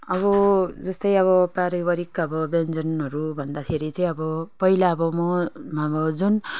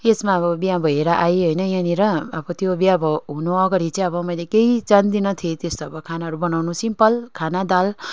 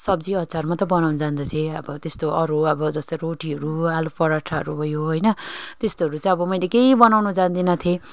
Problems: none marked